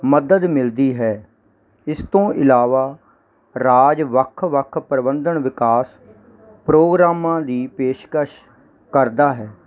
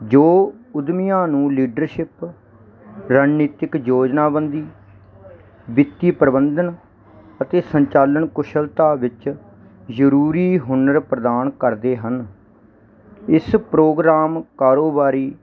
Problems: none marked